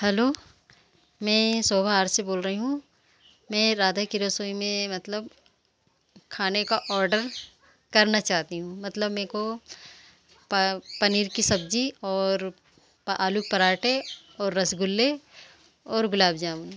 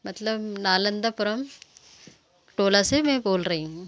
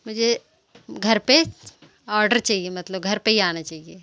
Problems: none marked